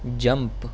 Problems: constant background noise